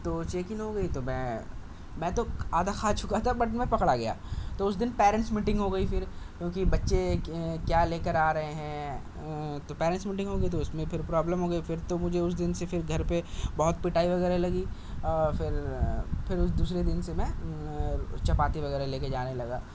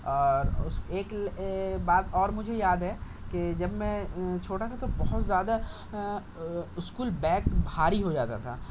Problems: constant background noise